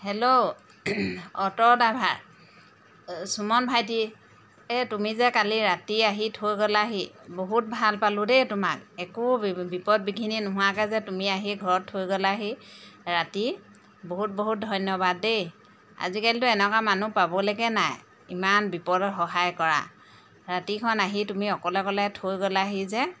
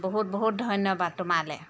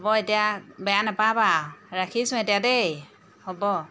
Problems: background sounds at intervals